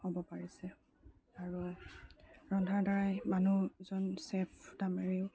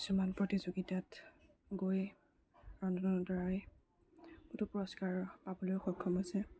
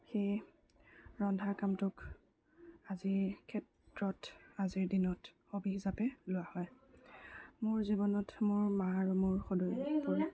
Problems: low volume